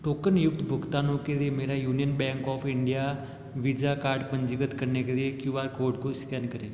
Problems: none marked